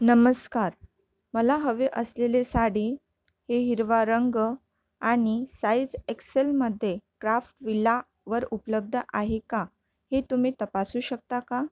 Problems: none marked